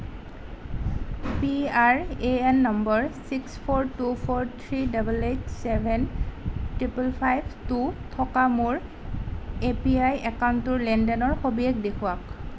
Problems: none marked